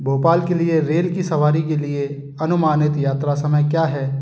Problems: constant background noise